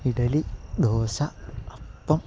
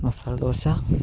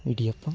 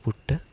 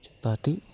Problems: none marked